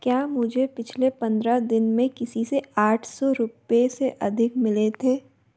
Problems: none marked